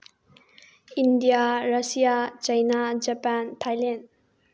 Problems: low volume